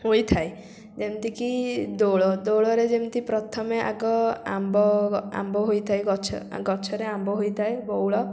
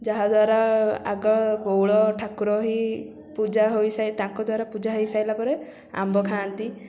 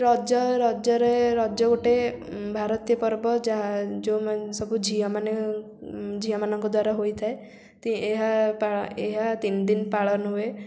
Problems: none marked